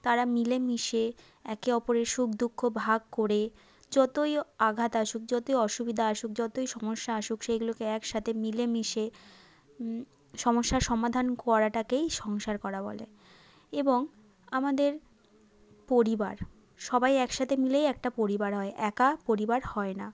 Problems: none marked